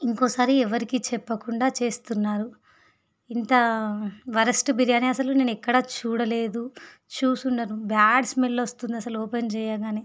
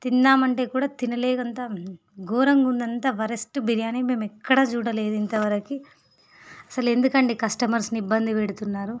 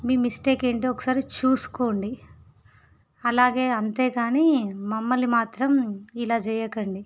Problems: none marked